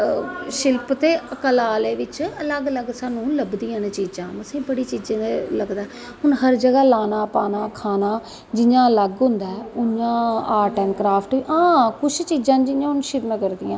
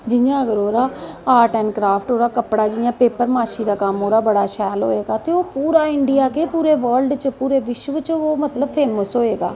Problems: constant background noise, echo